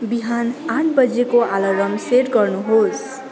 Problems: continuous background conversations